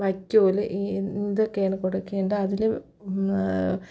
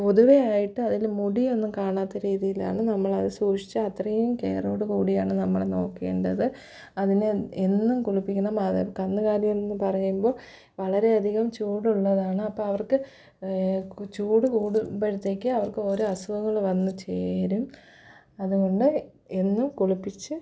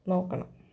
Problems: low volume